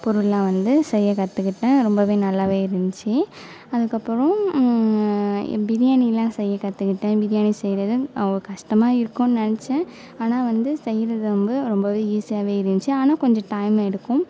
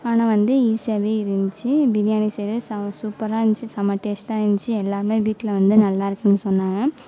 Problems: none marked